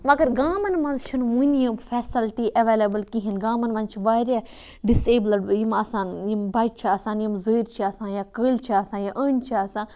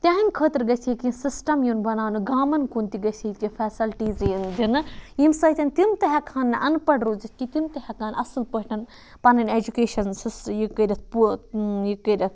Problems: background sounds at intervals